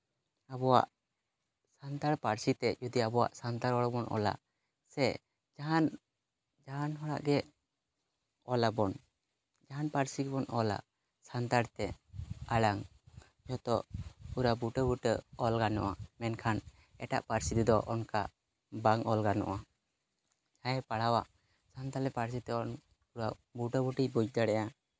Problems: background sounds at intervals